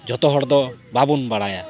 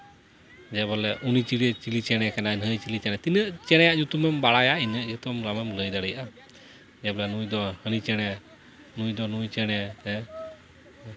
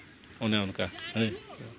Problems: none marked